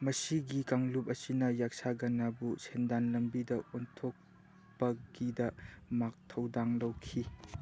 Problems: none marked